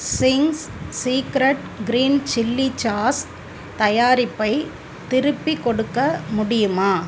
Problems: constant background noise